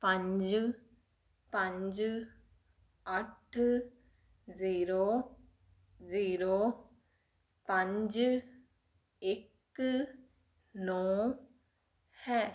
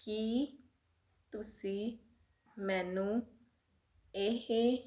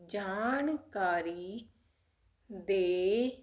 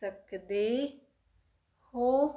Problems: constant background noise